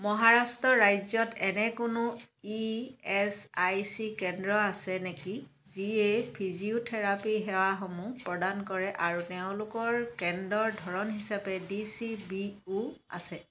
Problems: background sounds at intervals